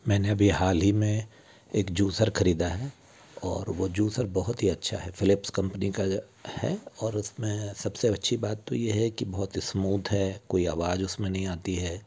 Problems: constant background noise